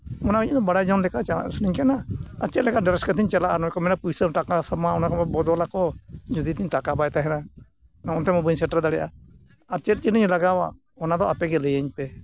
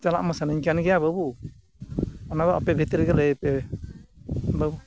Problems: constant background noise